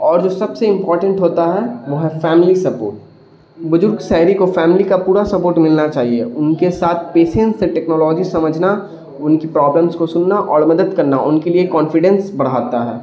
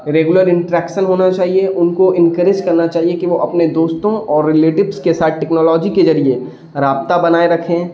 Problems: constant background noise